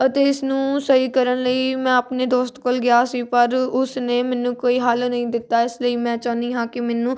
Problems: constant background noise